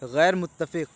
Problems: none marked